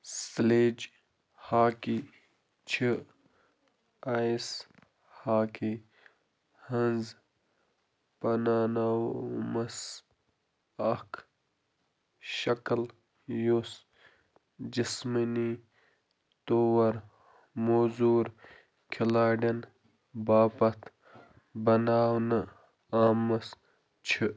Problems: none marked